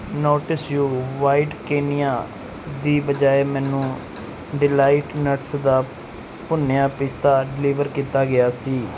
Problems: background sounds at intervals